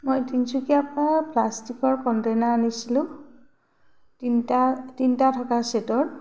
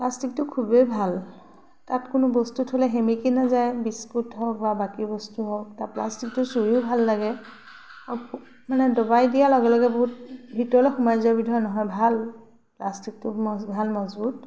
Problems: none marked